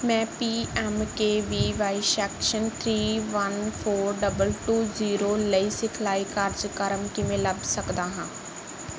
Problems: none marked